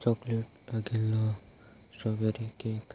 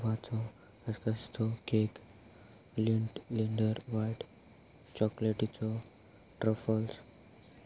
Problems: constant background noise